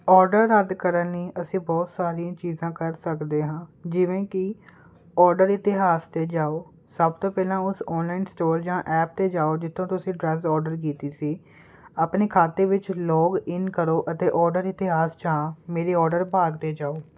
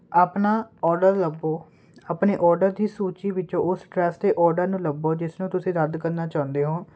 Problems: none marked